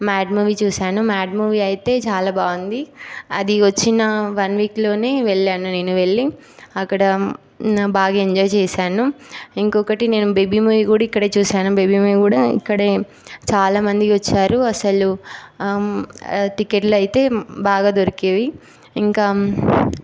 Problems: constant background noise